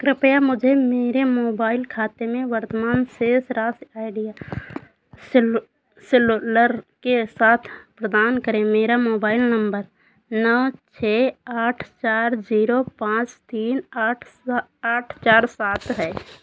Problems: constant background noise